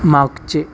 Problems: constant background noise